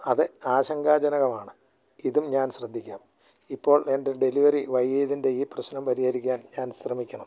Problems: low volume